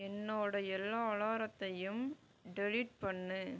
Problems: low volume